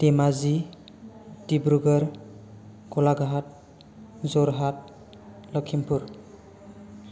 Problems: none marked